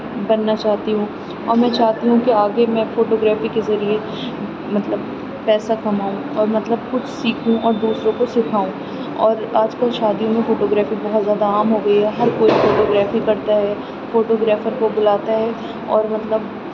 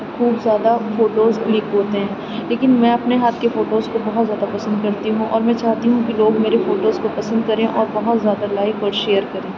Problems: none marked